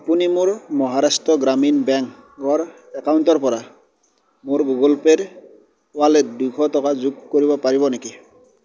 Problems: background sounds at intervals